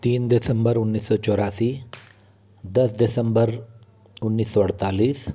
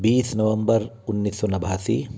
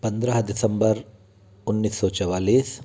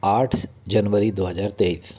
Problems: constant background noise, continuous background conversations